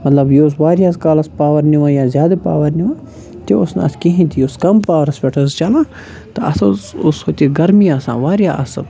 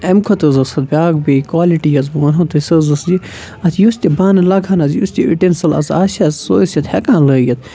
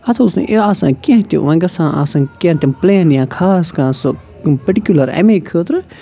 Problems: constant background noise, continuous background conversations